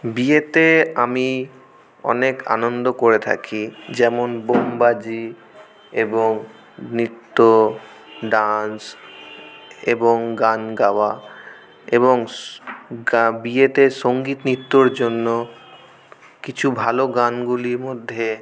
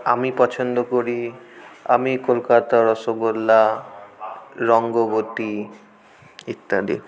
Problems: none marked